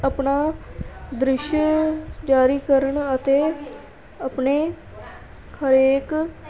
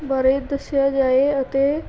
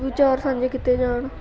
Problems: continuous background conversations